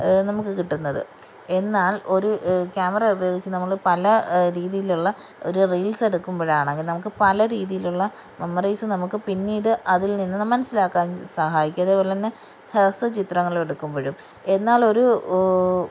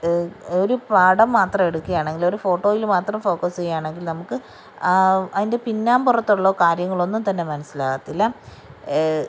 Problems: background sounds at intervals